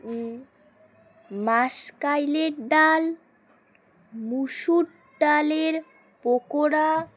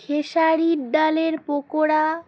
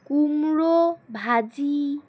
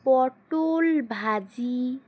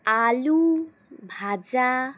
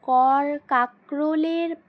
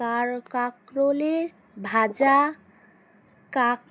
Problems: constant background noise